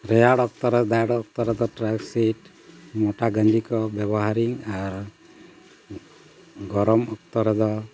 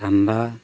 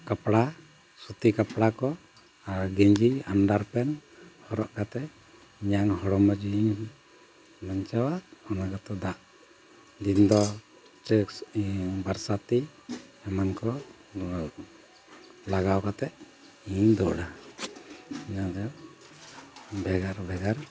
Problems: constant background noise